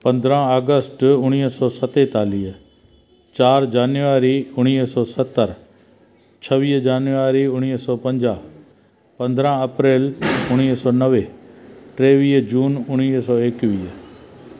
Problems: constant background noise